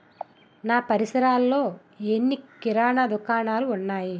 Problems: none marked